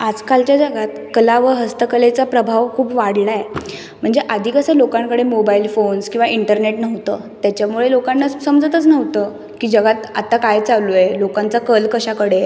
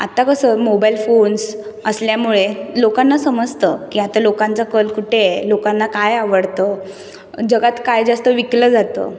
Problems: none marked